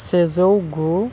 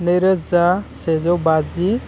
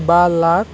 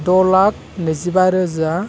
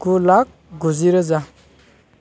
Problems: none marked